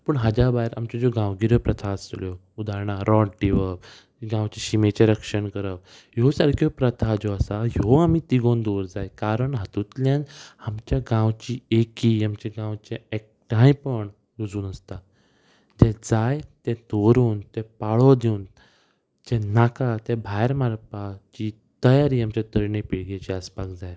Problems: none marked